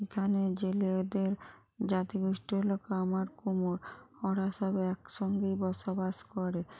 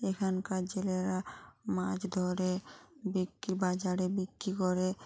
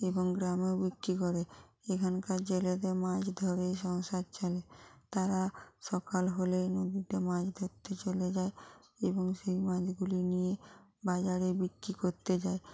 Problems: continuous background conversations